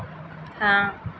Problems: none marked